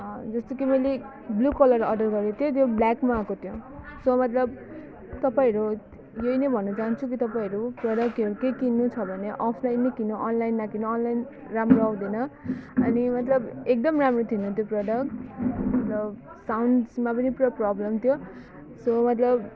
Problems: none marked